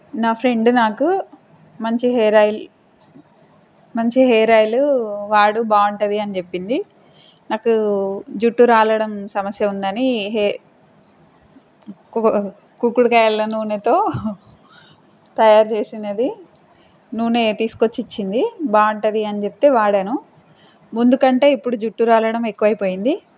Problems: constant background noise